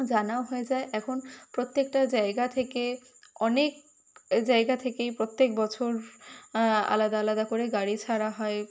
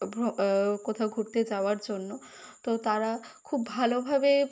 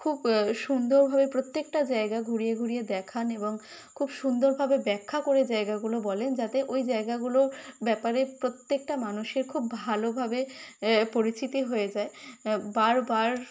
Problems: constant background noise